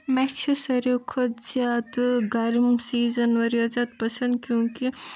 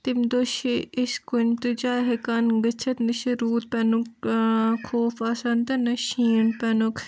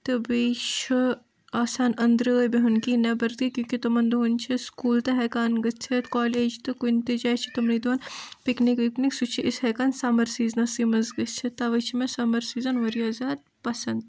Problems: background sounds at intervals, background conversations at intervals